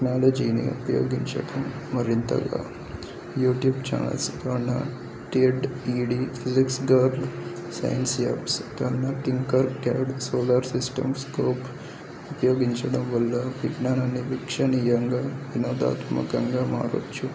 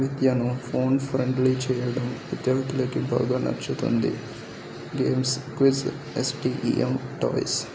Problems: constant background noise, background conversations at intervals, low volume